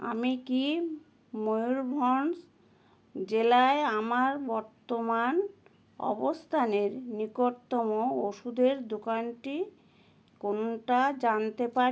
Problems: none marked